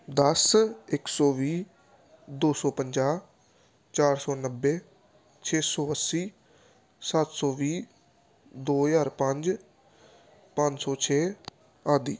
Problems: none marked